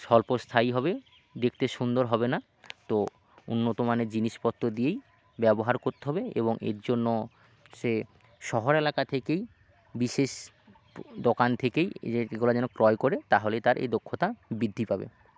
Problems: background sounds at intervals